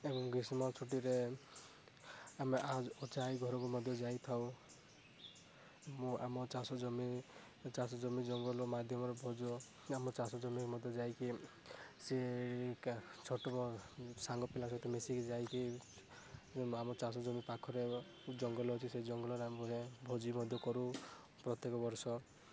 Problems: constant background noise, low volume